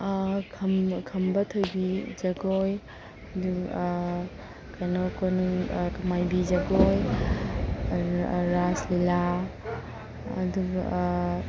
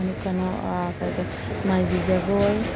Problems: constant background noise